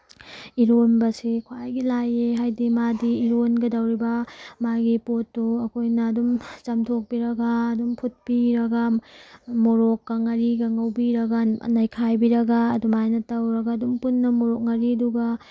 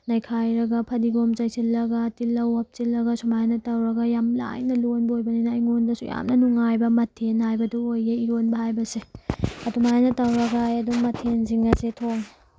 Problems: none marked